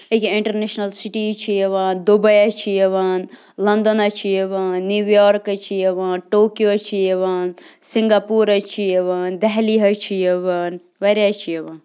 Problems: constant background noise